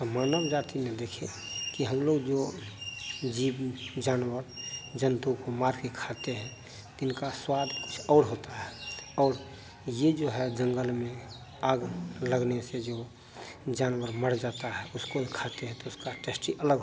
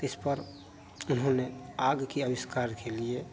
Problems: none marked